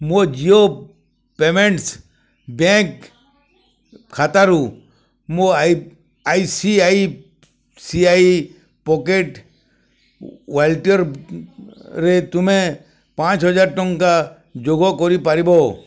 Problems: none marked